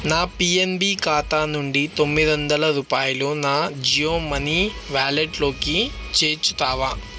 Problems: constant background noise